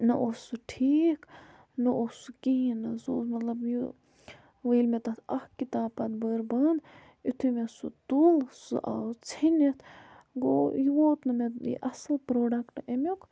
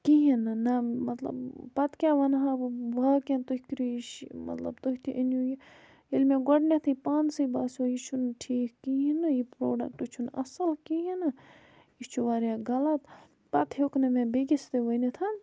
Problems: none marked